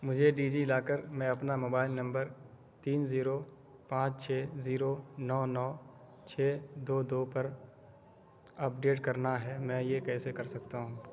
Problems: constant background noise